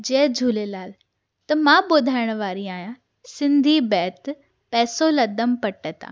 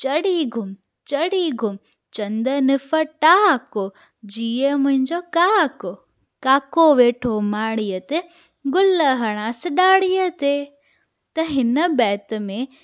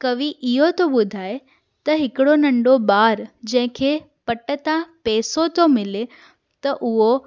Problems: none marked